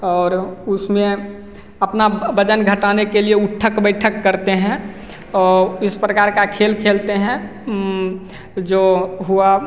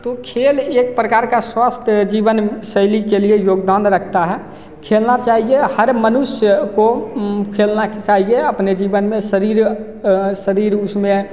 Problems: none marked